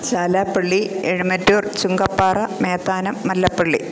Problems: constant background noise